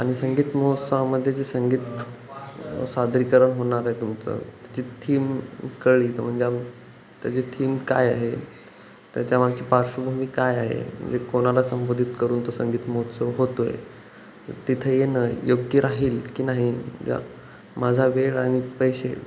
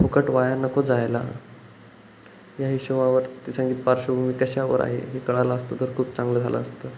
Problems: constant background noise, background conversations at intervals